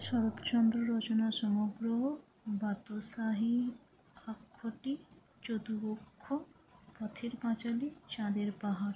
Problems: low volume